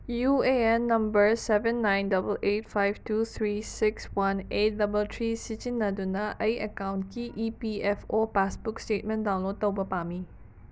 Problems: background sounds at intervals